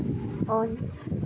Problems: none marked